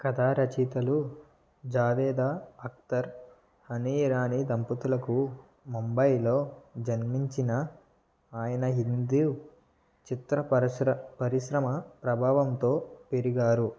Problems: low volume